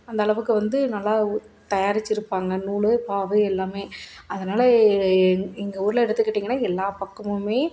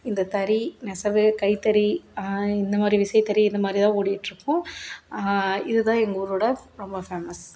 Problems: none marked